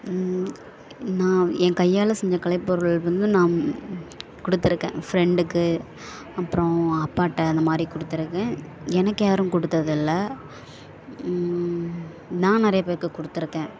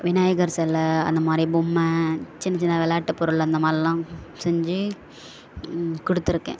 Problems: constant background noise